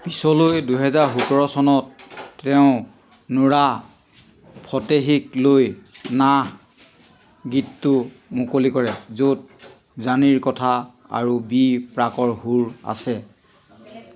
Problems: constant background noise